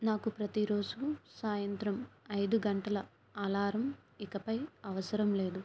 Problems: none marked